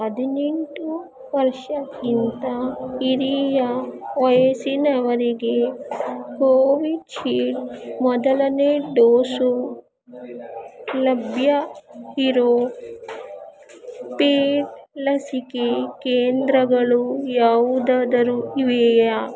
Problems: constant background noise